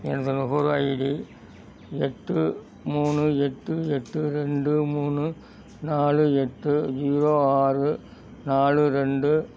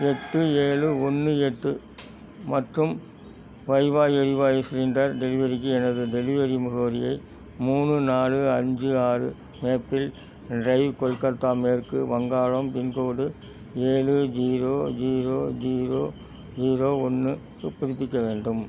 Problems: background sounds at intervals